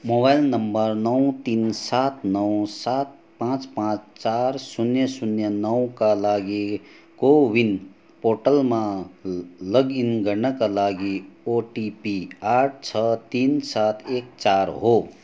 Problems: background sounds at intervals